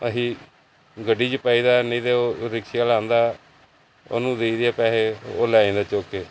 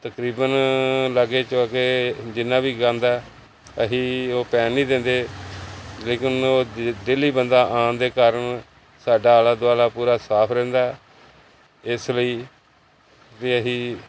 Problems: none marked